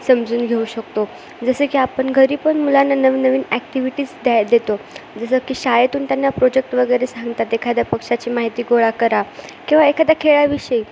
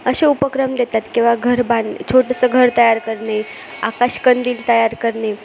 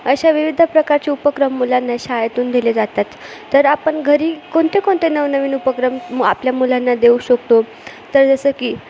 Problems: background sounds at intervals